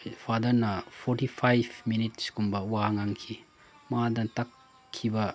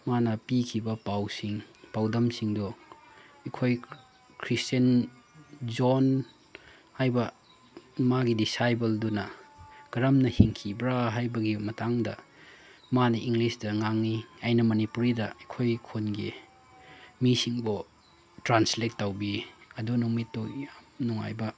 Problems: background sounds at intervals